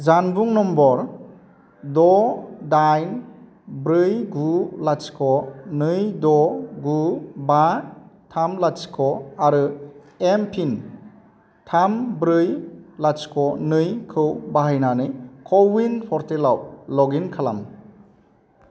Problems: constant background noise